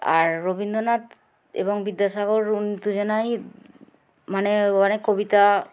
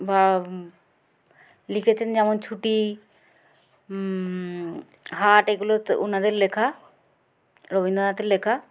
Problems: constant background noise